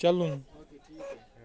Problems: constant background noise, continuous background conversations